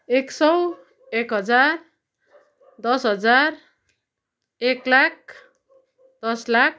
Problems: constant background noise